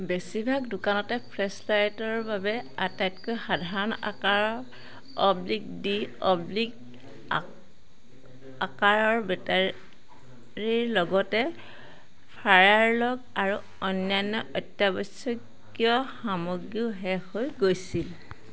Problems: none marked